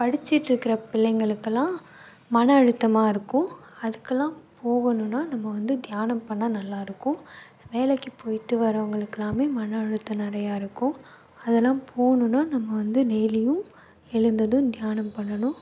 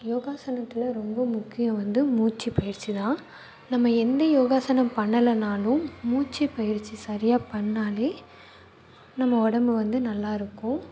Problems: background sounds at intervals